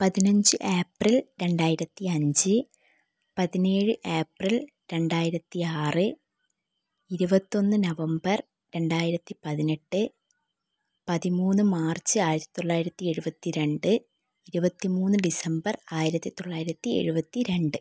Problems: none marked